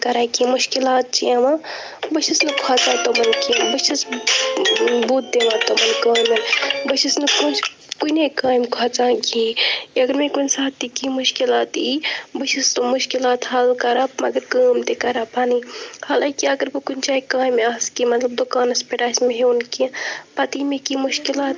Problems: constant background noise, continuous background conversations